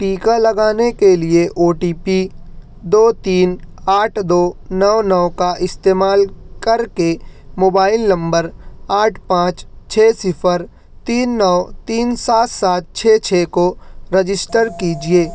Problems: none marked